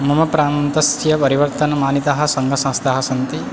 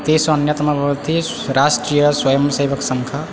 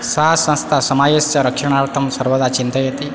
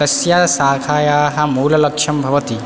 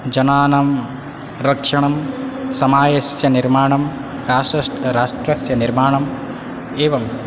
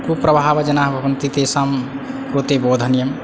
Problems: background sounds at intervals